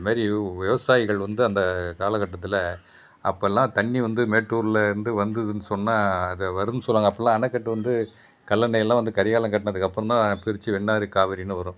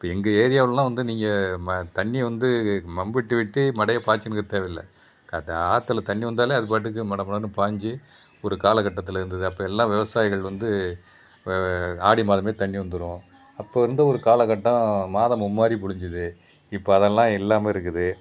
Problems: constant background noise